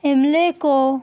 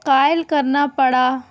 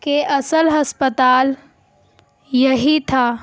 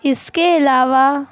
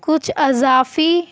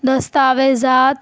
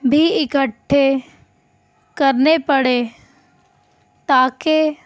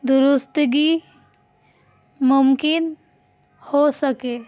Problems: constant background noise